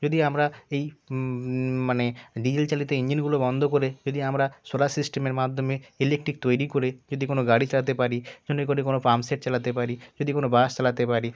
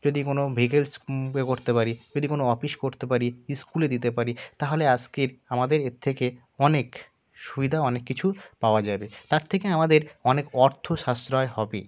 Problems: constant background noise, continuous background conversations